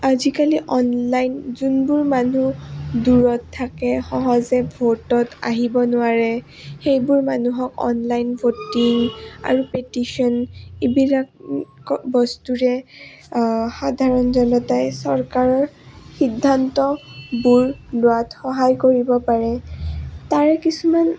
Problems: none marked